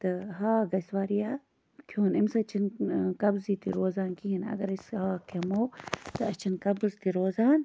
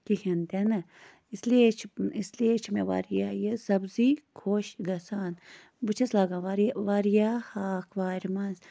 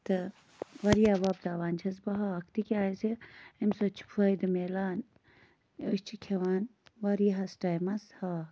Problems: none marked